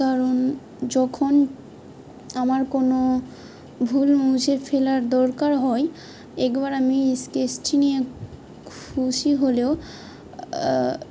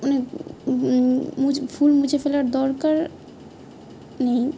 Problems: constant background noise